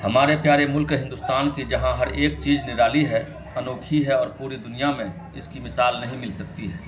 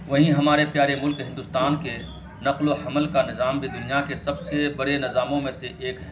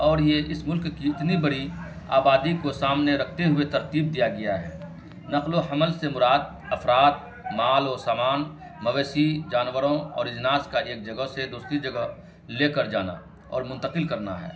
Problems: constant background noise